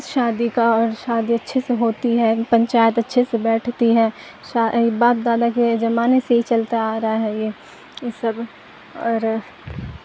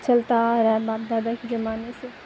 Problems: constant background noise